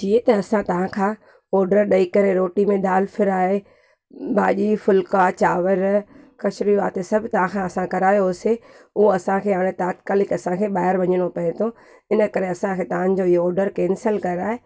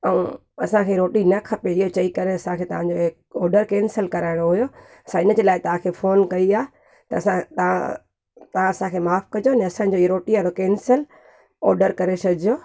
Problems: background sounds at intervals